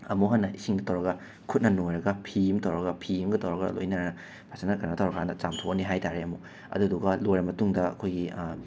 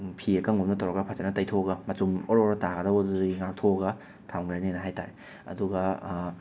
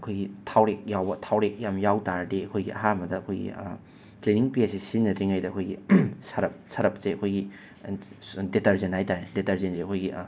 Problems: background sounds at intervals